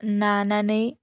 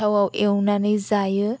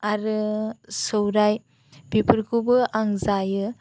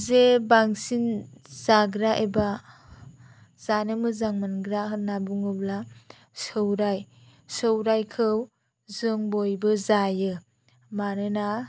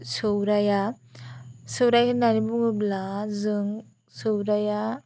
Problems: none marked